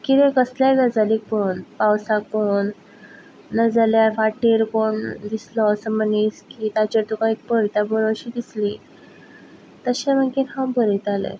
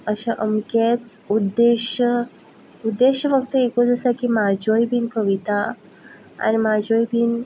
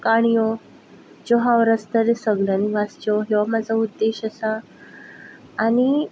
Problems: background sounds at intervals